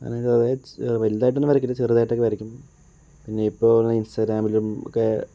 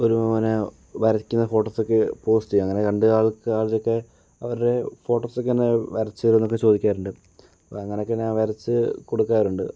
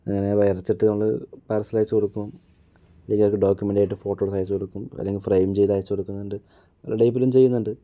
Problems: low volume